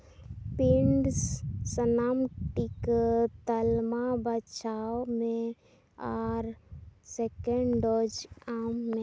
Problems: constant background noise